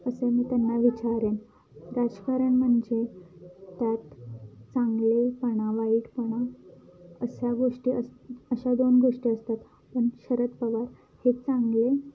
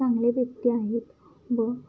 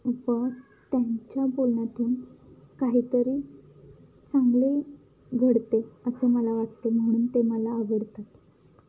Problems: background sounds at intervals, background conversations at intervals